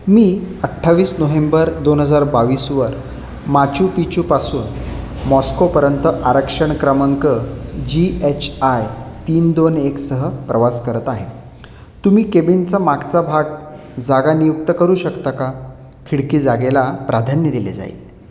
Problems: none marked